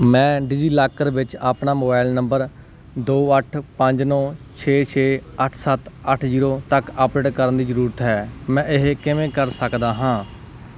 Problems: none marked